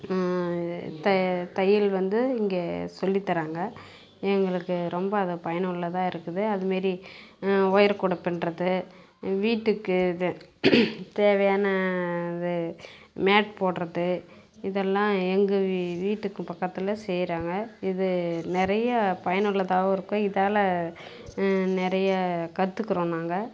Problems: none marked